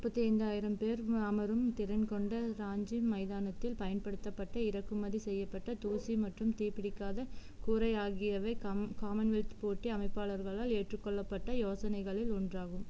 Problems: low volume